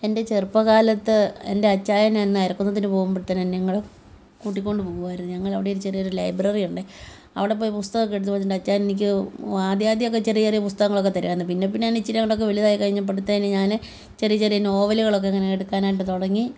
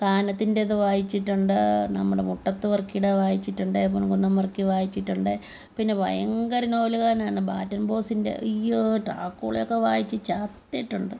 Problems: background conversations at intervals